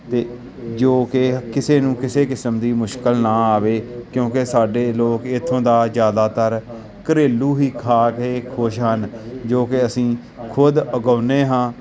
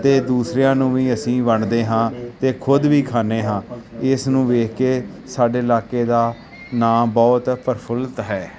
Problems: constant background noise